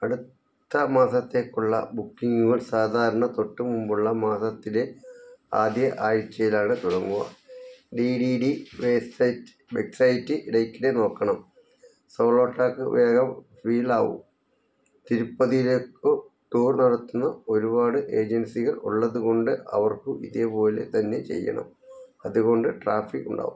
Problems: low volume